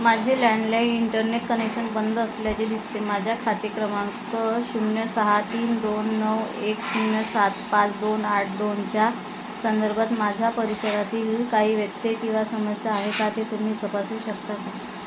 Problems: constant background noise, background conversations at intervals